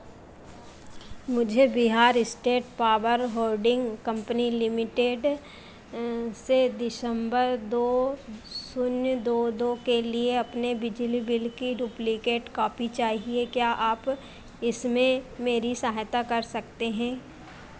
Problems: none marked